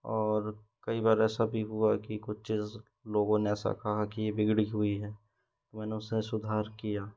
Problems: background sounds at intervals